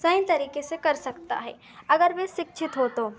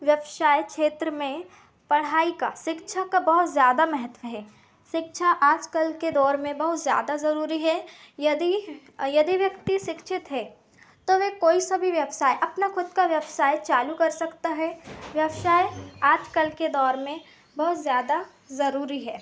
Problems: constant background noise, continuous background conversations